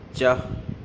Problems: none marked